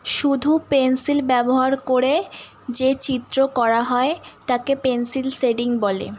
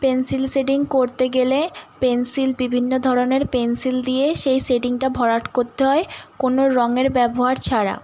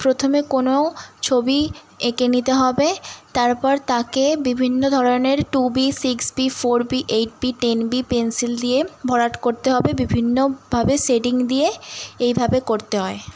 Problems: background sounds at intervals